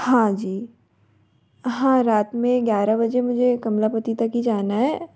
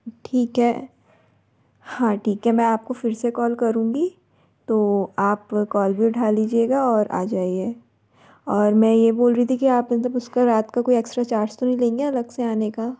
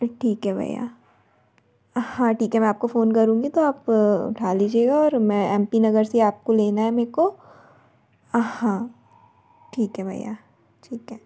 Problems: constant background noise